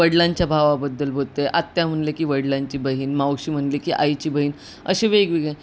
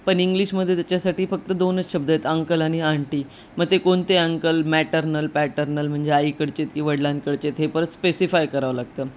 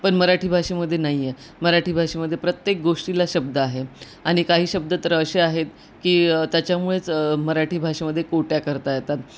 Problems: constant background noise